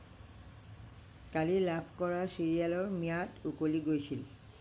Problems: low volume